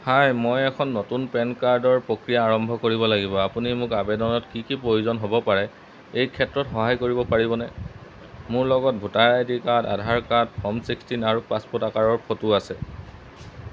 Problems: background sounds at intervals